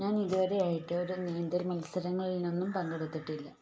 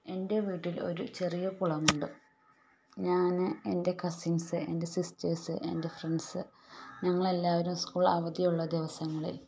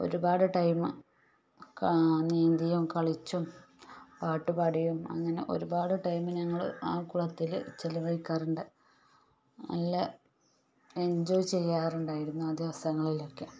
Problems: background sounds at intervals, low volume